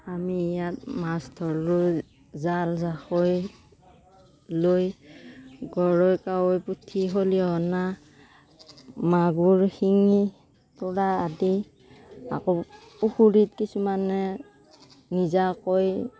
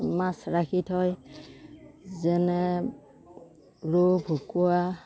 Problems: constant background noise